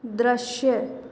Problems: echo